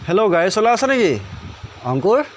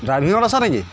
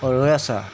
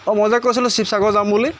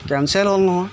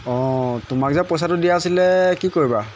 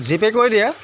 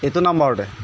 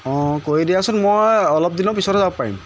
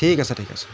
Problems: none marked